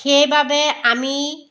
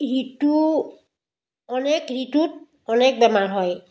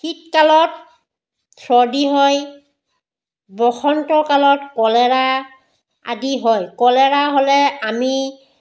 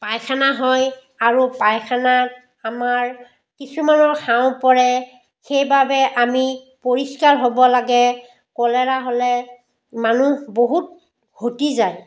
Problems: none marked